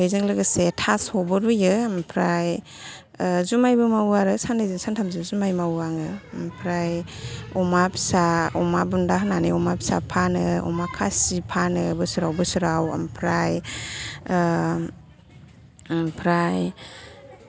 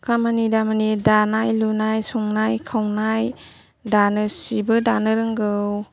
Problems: continuous background conversations